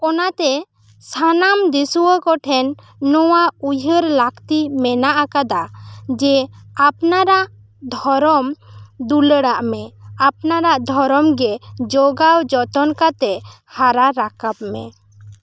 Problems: none marked